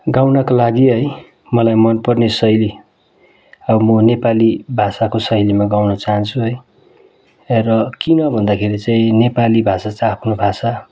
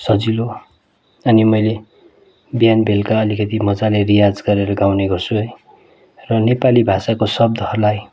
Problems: constant background noise